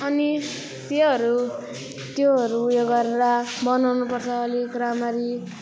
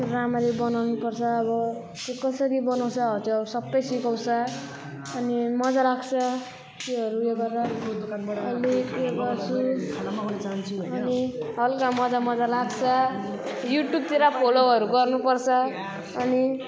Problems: continuous background conversations